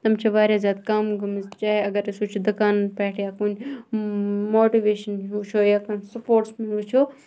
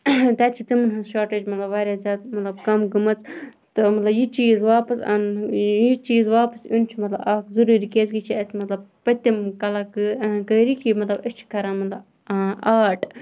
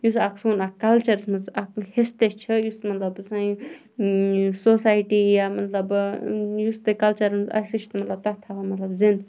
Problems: background conversations at intervals